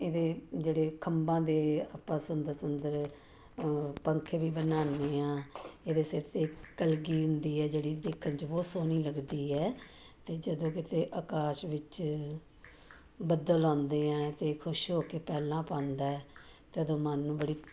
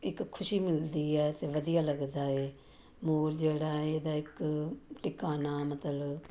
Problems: none marked